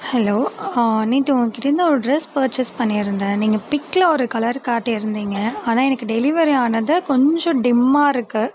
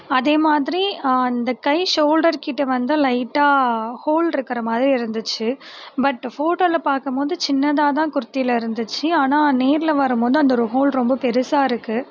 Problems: constant background noise